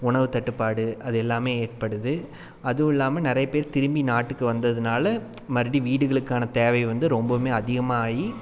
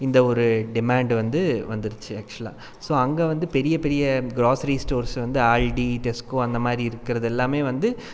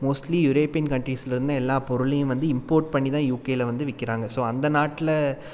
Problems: none marked